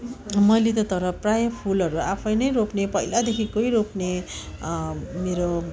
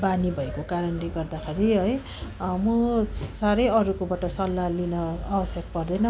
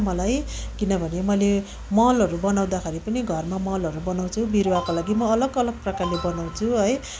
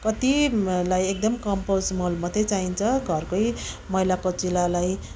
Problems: none marked